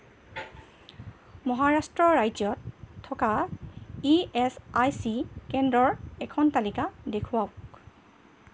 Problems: constant background noise